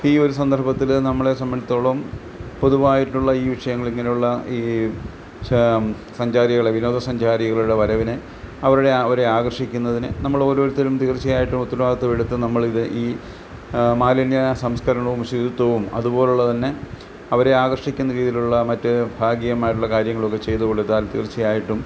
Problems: background sounds at intervals